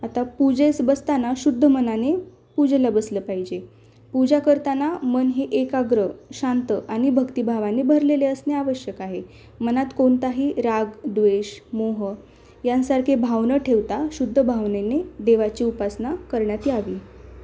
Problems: background sounds at intervals